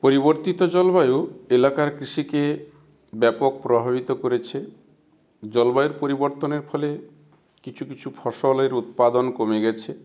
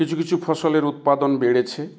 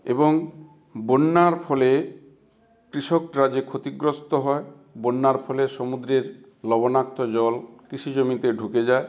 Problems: constant background noise